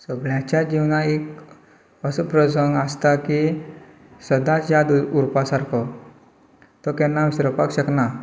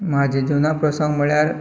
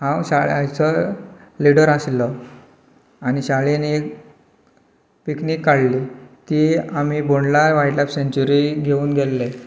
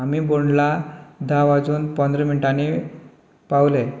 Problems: none marked